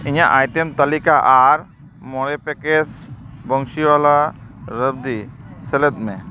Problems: constant background noise, continuous background conversations